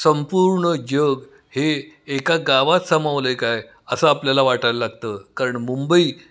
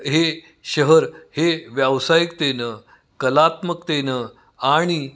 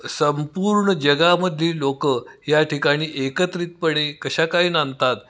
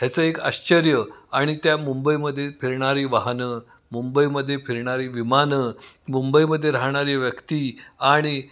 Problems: background sounds at intervals, background conversations at intervals, echo